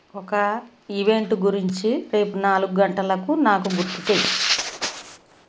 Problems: background sounds at intervals